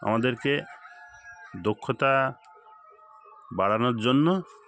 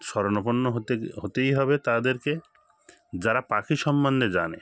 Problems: constant background noise